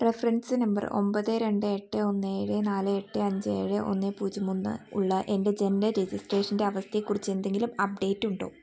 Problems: none marked